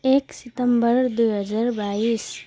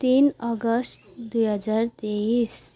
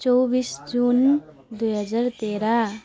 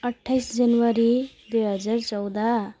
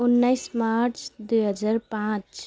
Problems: constant background noise